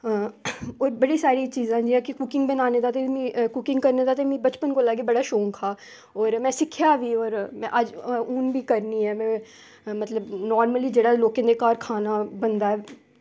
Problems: none marked